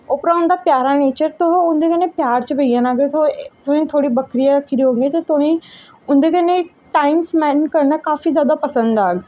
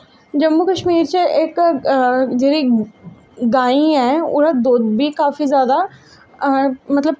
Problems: none marked